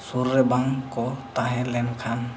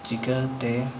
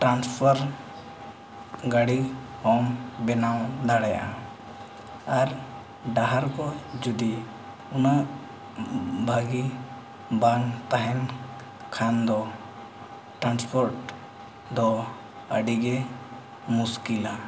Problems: constant background noise